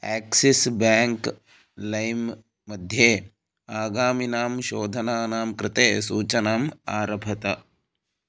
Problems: none marked